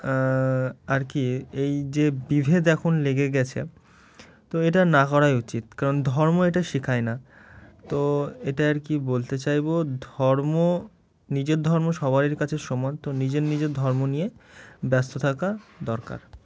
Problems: none marked